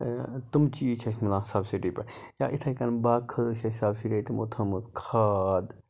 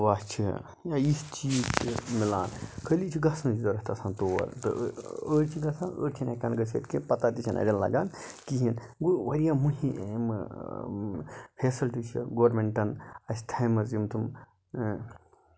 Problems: low volume